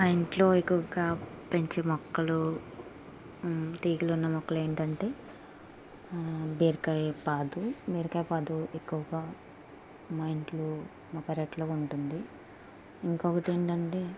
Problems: constant background noise, low volume